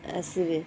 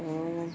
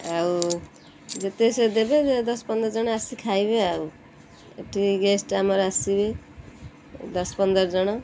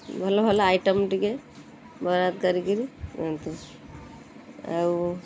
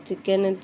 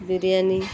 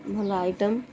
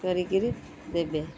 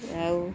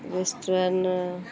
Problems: none marked